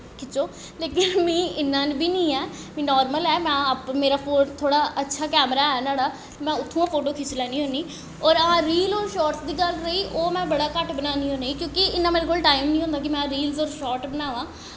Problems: echo